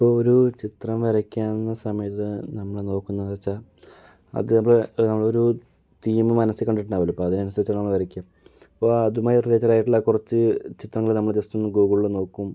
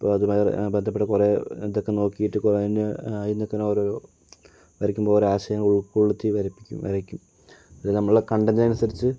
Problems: low volume